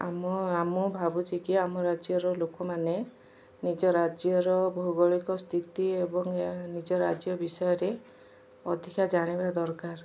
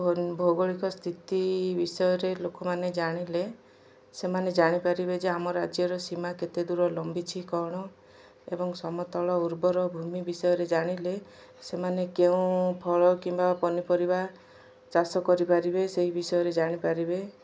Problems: none marked